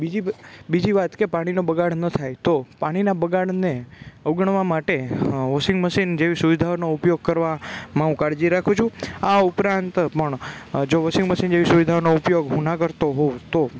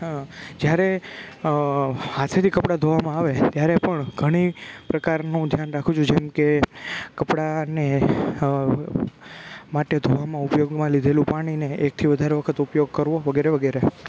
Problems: background sounds at intervals